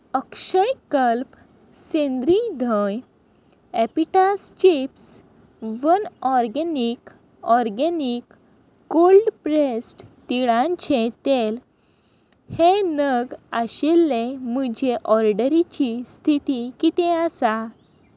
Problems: constant background noise